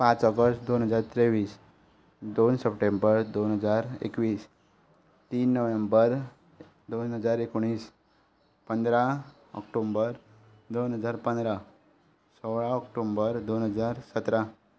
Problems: background sounds at intervals